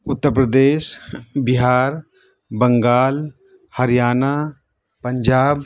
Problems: background conversations at intervals